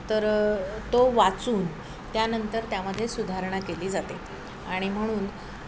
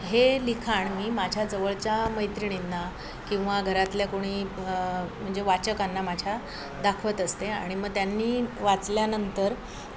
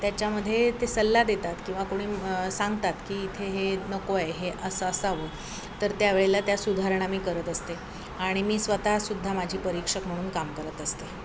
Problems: constant background noise, background conversations at intervals